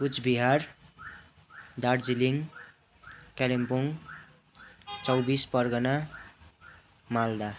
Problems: constant background noise, continuous background conversations